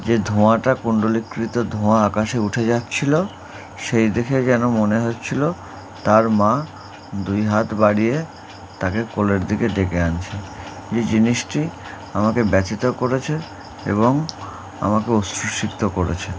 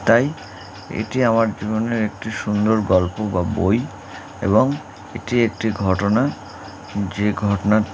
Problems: constant background noise